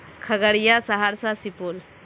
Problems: constant background noise